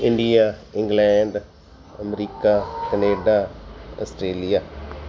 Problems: constant background noise